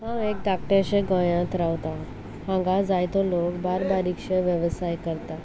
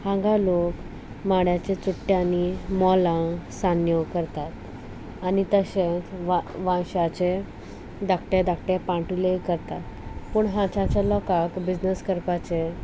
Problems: none marked